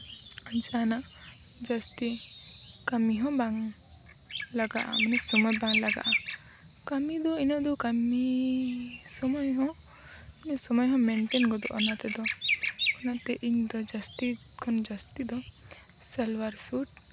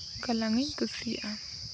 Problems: background sounds at intervals